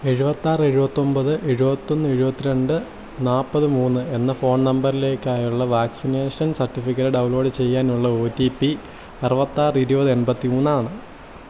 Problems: constant background noise